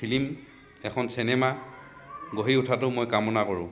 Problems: background conversations at intervals